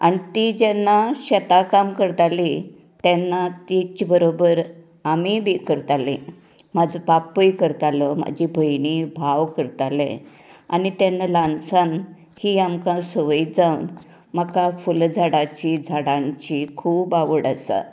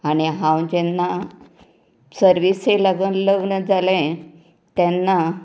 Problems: none marked